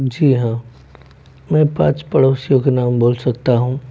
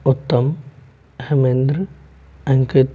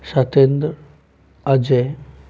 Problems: background sounds at intervals